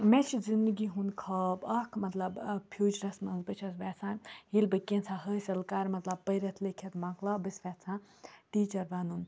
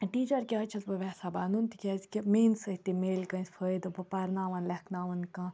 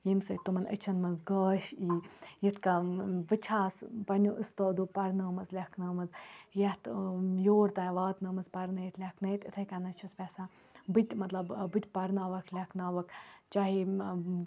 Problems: none marked